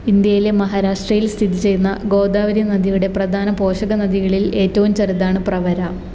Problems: none marked